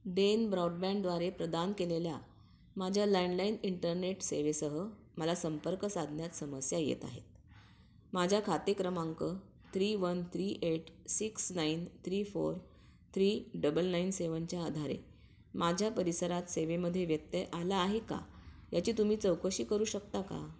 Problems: none marked